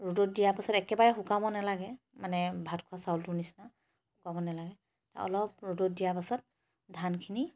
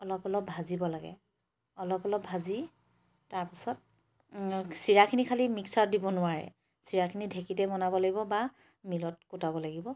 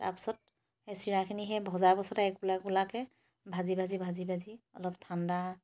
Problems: none marked